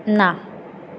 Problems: constant background noise